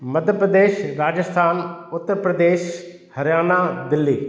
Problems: echo